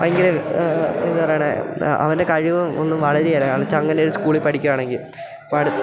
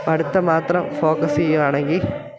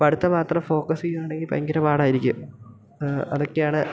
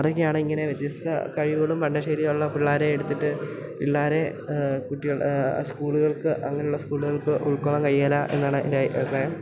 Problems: none marked